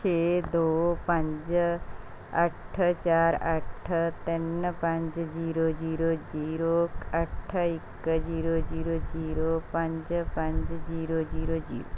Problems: background sounds at intervals